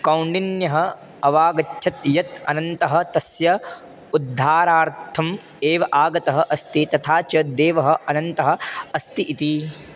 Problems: constant background noise